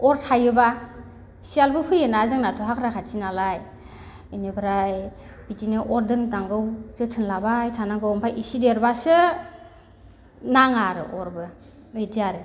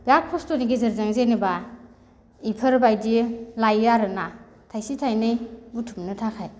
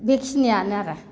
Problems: none marked